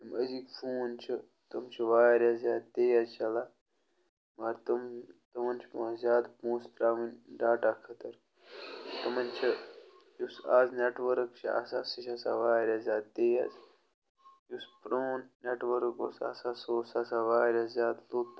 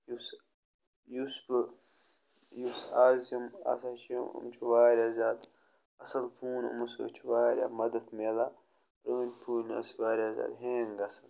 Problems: none marked